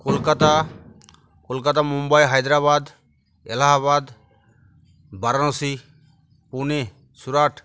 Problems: none marked